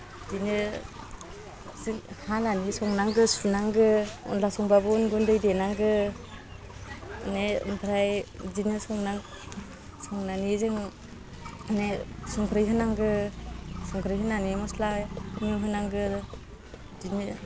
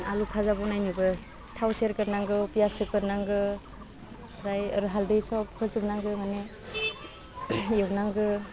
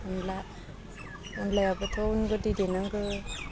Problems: constant background noise